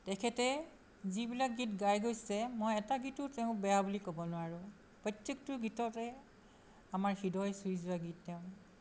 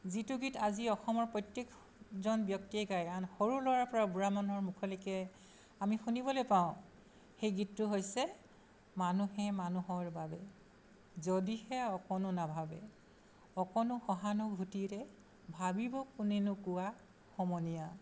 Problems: constant background noise